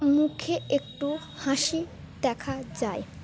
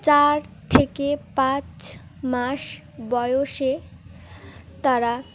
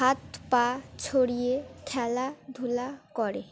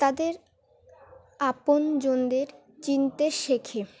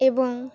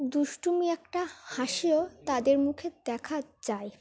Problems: background sounds at intervals, continuous background conversations